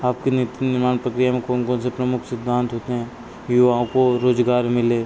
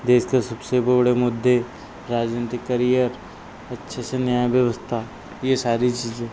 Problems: constant background noise